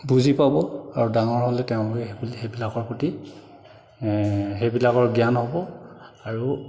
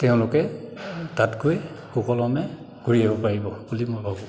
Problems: background sounds at intervals, echo